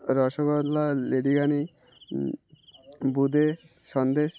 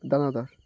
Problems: constant background noise